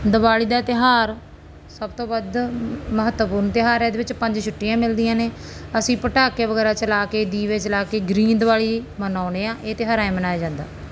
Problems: background sounds at intervals